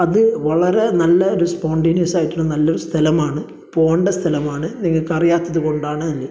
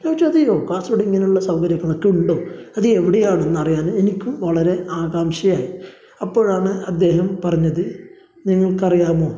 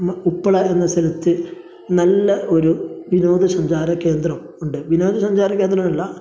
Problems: background sounds at intervals, low volume